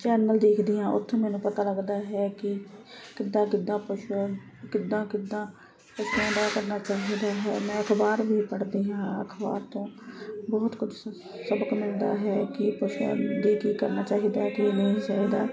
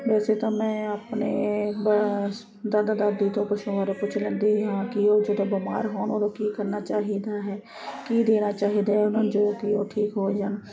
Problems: constant background noise, continuous background conversations